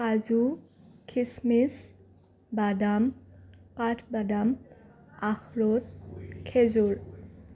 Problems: none marked